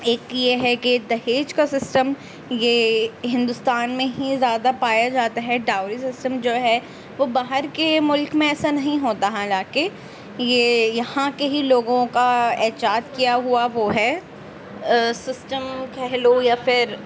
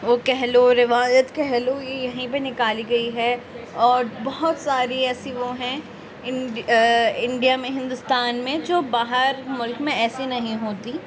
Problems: background sounds at intervals